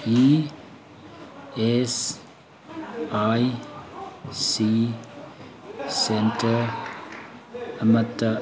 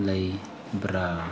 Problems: constant background noise